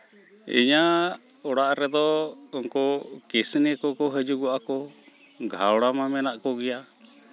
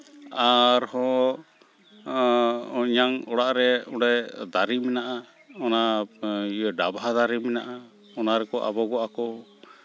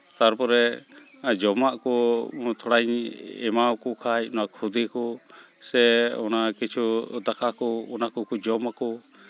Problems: none marked